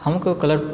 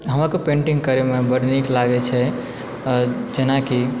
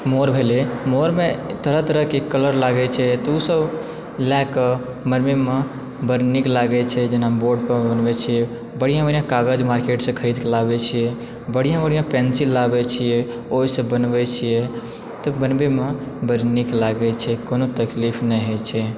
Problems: constant background noise